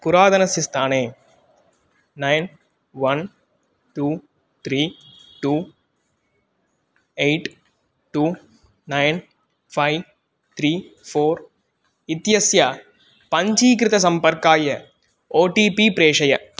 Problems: none marked